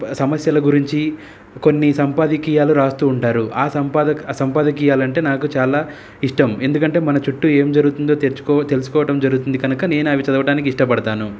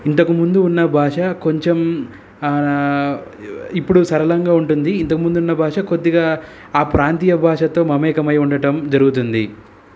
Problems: none marked